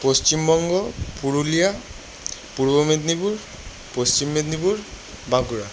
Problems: constant background noise